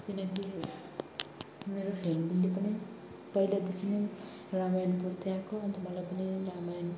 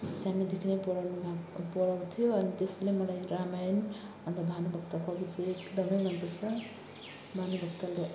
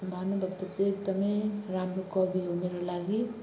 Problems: background sounds at intervals, background conversations at intervals